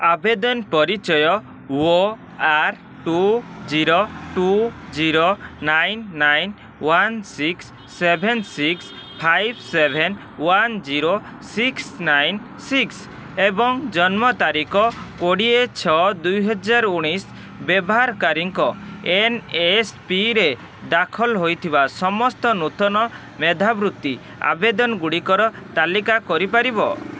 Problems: background sounds at intervals